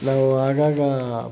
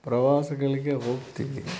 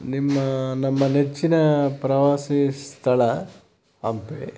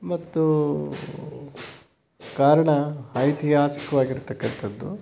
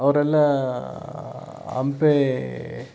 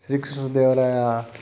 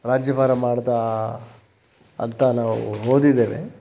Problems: constant background noise